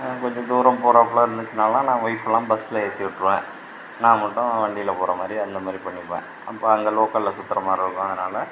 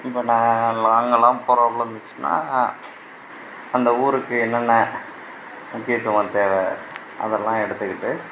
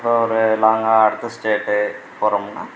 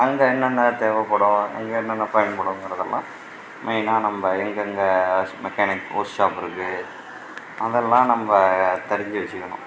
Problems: background sounds at intervals